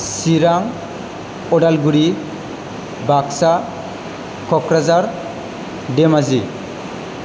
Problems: constant background noise